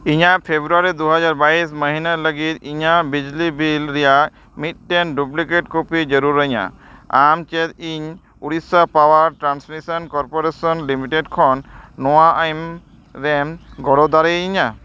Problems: none marked